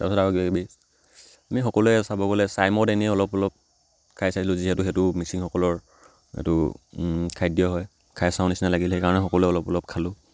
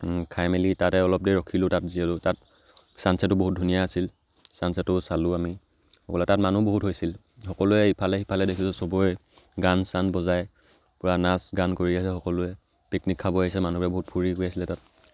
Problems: none marked